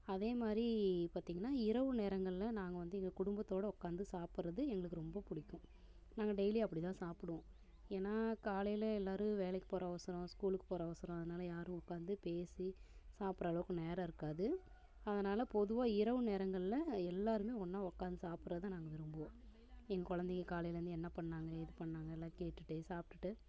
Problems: constant background noise